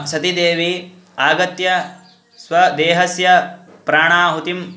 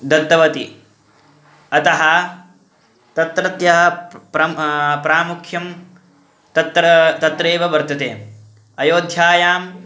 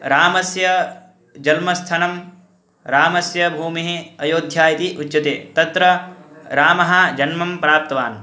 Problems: constant background noise, background conversations at intervals